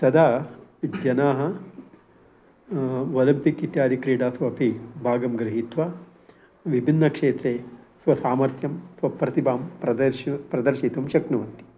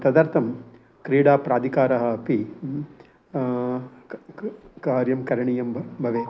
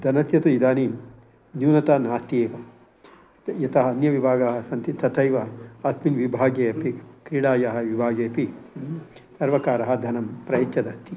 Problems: constant background noise